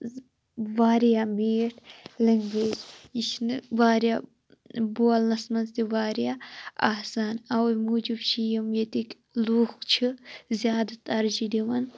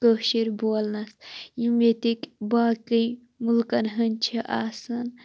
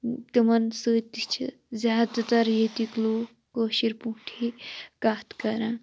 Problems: background sounds at intervals